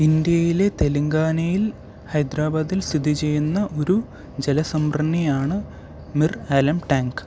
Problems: background sounds at intervals